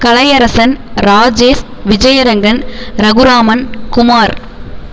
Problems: constant background noise